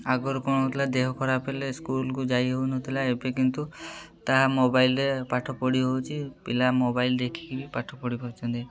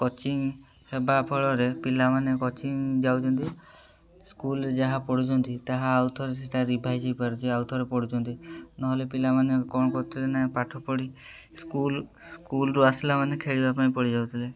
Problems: constant background noise, continuous background conversations